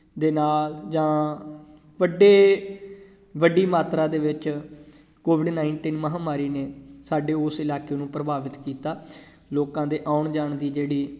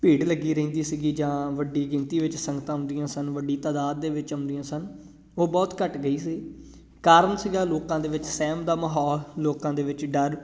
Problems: background sounds at intervals